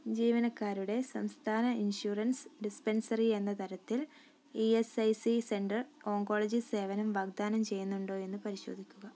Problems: low volume